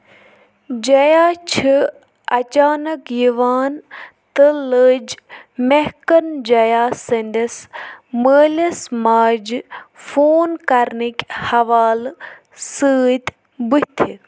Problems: none marked